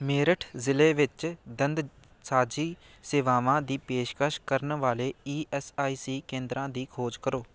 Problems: none marked